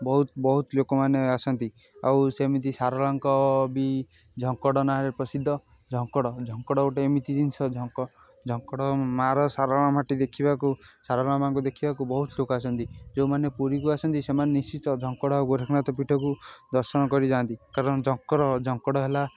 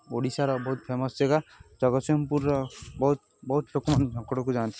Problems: constant background noise